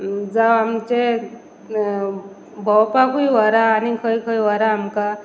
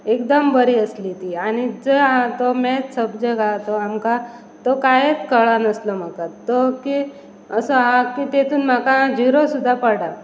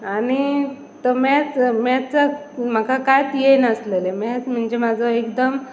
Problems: constant background noise